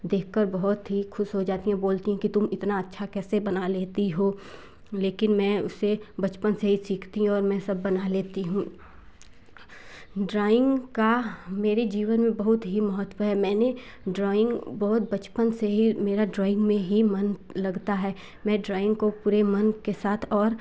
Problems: none marked